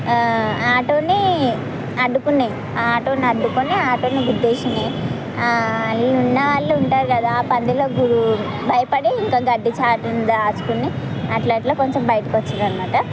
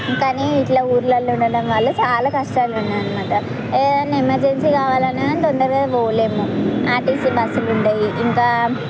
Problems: constant background noise, background conversations at intervals